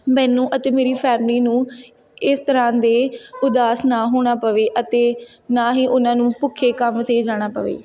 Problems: background conversations at intervals